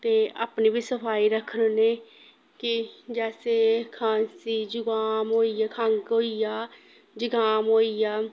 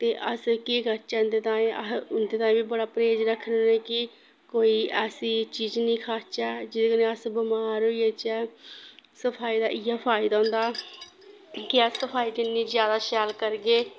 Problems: background sounds at intervals